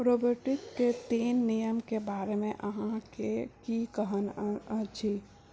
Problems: low volume